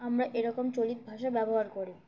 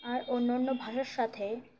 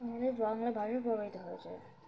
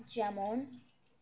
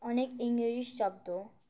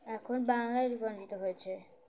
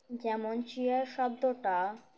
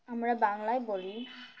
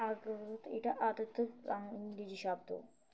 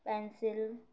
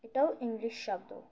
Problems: background sounds at intervals